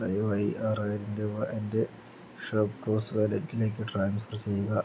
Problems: low volume